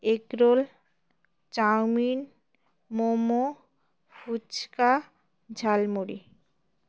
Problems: background sounds at intervals